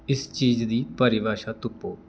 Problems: none marked